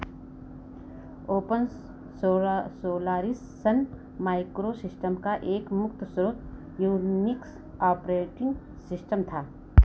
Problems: constant background noise